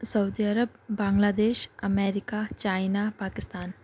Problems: background sounds at intervals